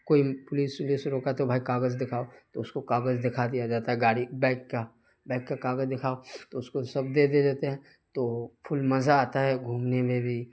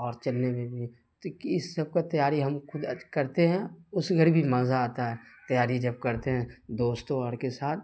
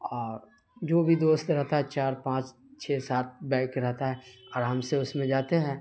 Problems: constant background noise